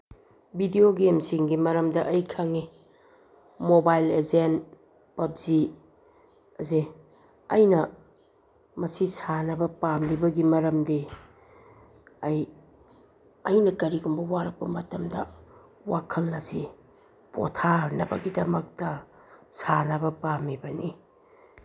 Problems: background sounds at intervals